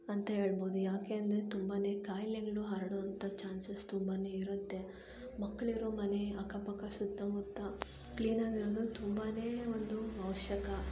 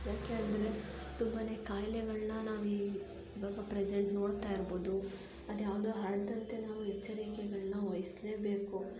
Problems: low volume